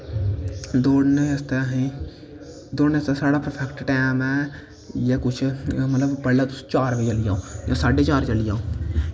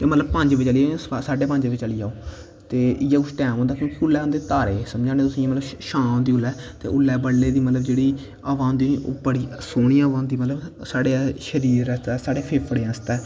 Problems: constant background noise